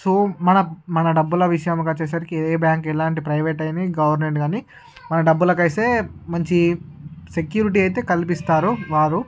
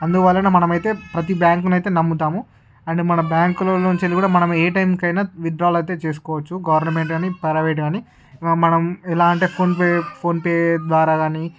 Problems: background sounds at intervals, background conversations at intervals